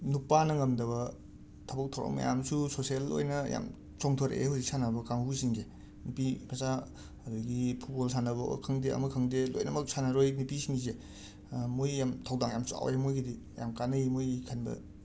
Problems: constant background noise, background conversations at intervals